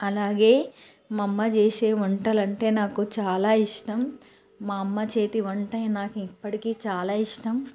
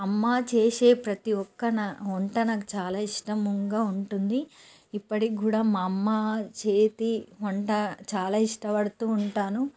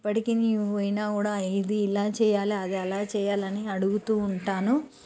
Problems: none marked